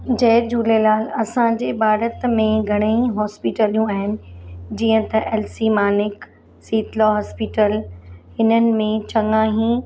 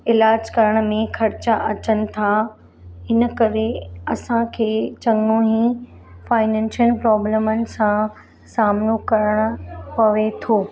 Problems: constant background noise, background conversations at intervals